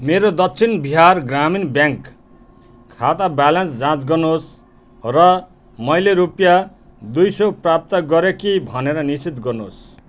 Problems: constant background noise